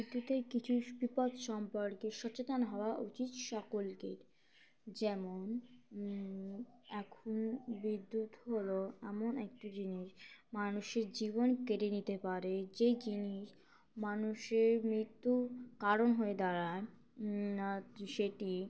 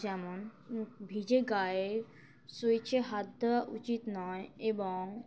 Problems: background sounds at intervals